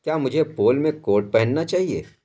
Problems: constant background noise